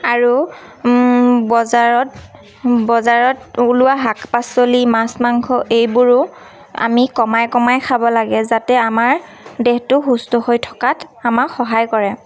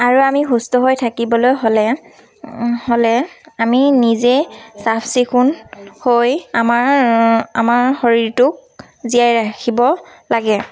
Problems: constant background noise, background conversations at intervals